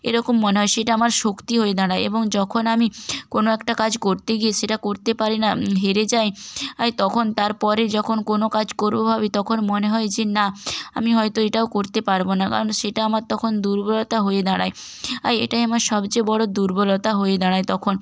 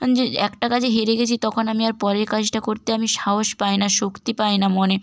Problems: none marked